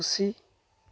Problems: constant background noise